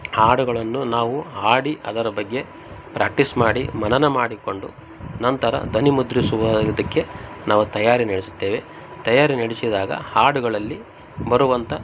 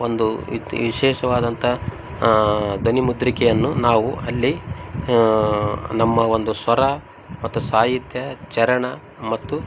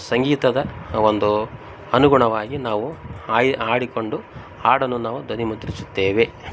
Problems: background sounds at intervals